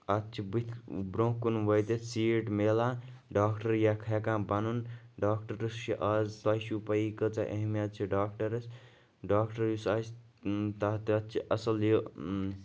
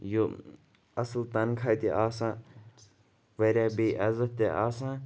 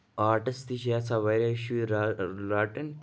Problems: continuous background conversations